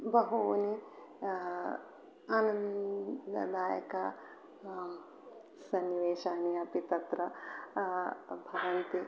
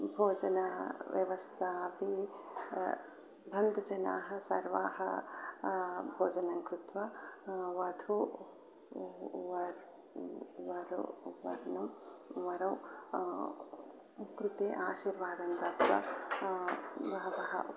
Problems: background sounds at intervals